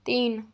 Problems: none marked